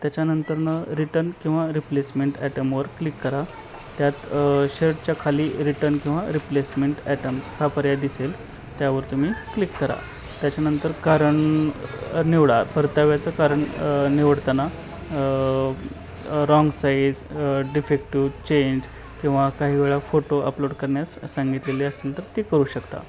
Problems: none marked